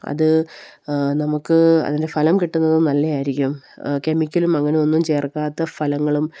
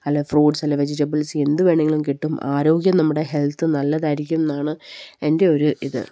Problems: none marked